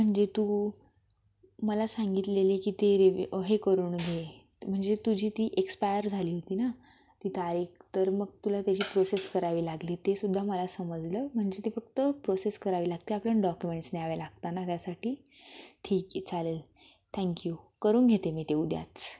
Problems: none marked